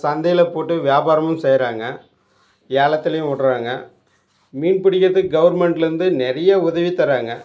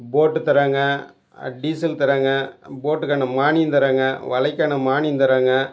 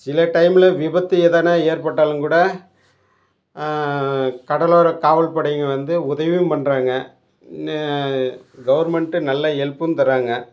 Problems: none marked